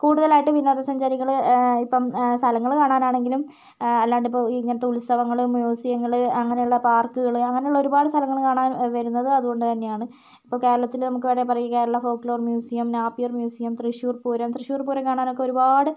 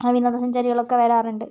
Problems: none marked